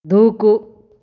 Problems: none marked